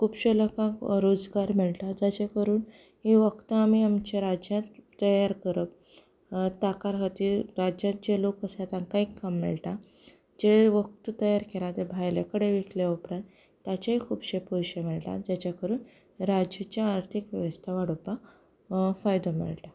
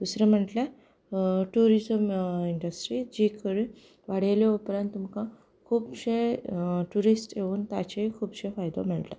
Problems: background sounds at intervals, background conversations at intervals